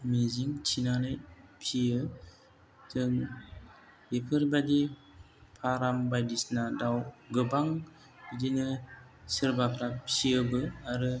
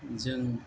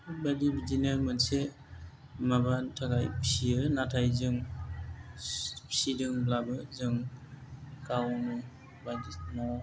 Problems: low volume